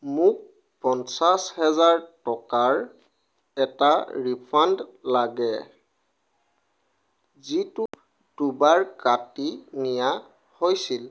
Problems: none marked